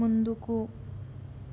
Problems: none marked